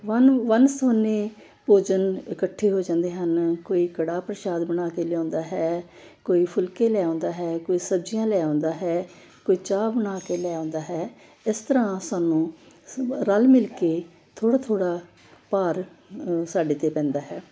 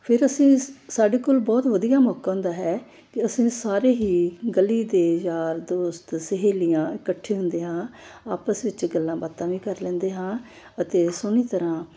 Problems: constant background noise